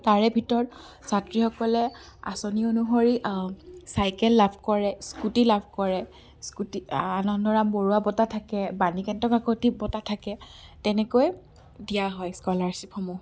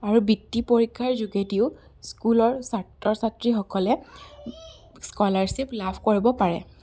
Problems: background sounds at intervals